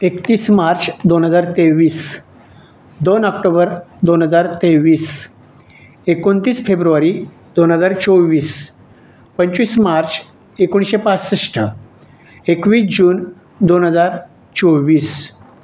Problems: none marked